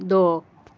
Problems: none marked